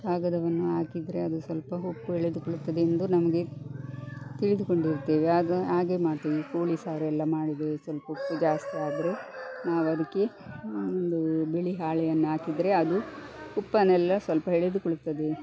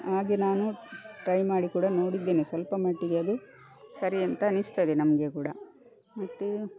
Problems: background sounds at intervals